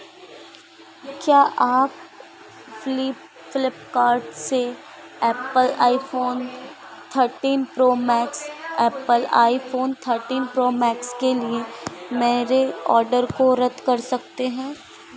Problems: none marked